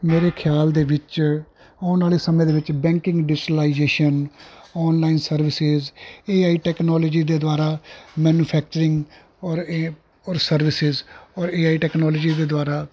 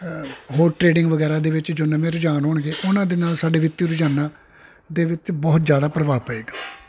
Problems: constant background noise